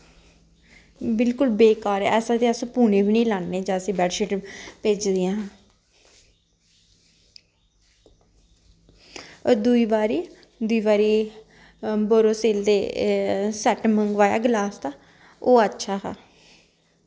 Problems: constant background noise